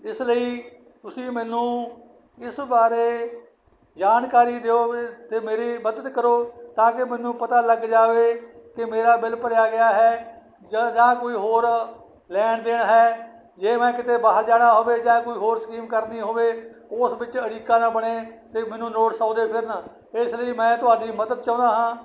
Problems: none marked